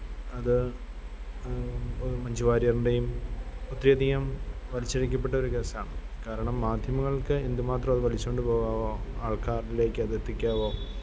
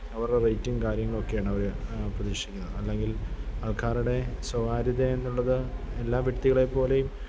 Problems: none marked